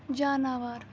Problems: constant background noise